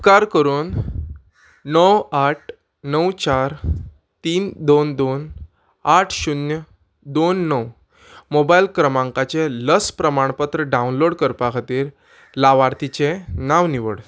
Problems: background sounds at intervals